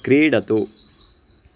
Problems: constant background noise